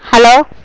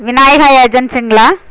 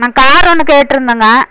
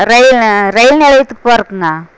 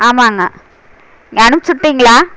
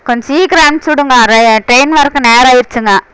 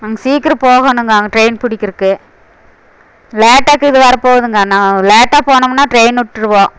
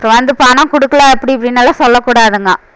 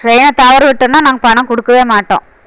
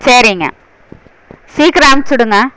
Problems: constant background noise